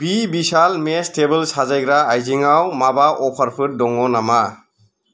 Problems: none marked